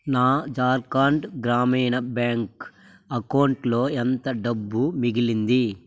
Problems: constant background noise